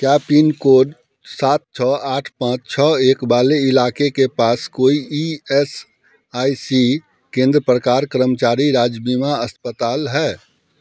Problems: background sounds at intervals